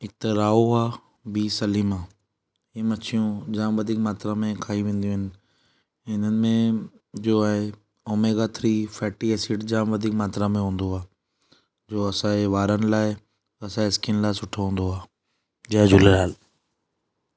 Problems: none marked